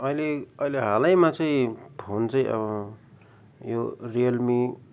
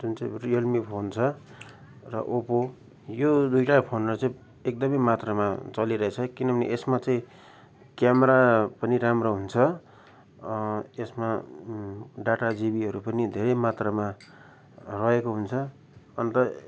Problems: background conversations at intervals